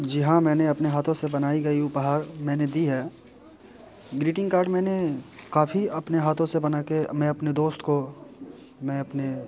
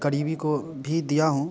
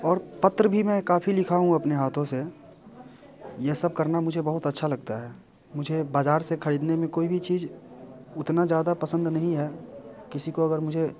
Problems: background sounds at intervals, background conversations at intervals